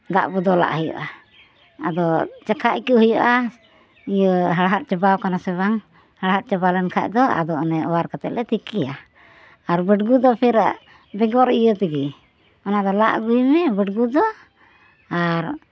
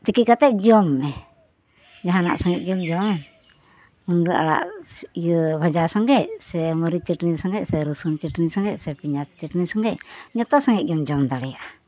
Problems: none marked